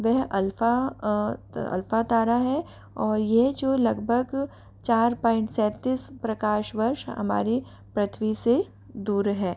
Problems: constant background noise